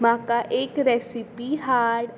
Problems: constant background noise